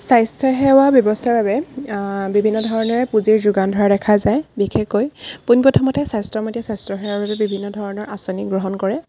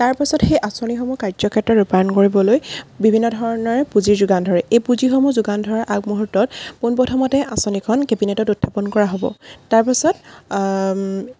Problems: background sounds at intervals